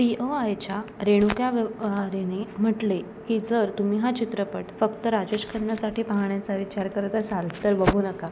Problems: constant background noise